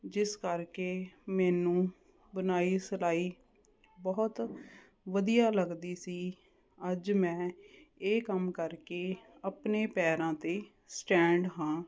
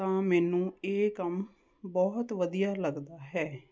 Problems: none marked